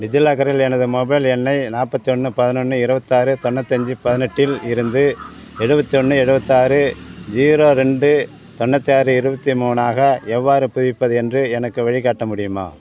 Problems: none marked